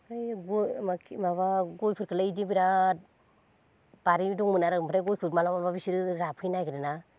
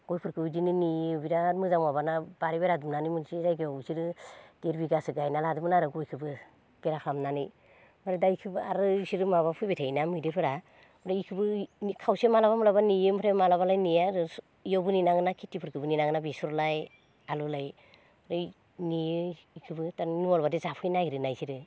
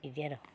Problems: none marked